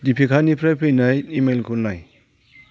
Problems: none marked